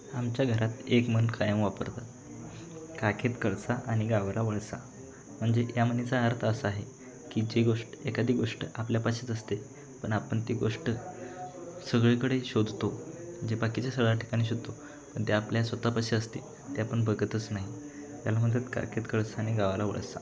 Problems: none marked